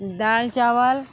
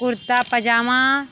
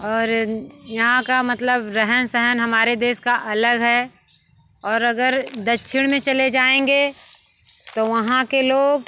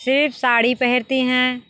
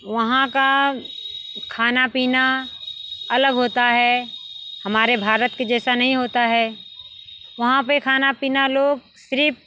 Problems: none marked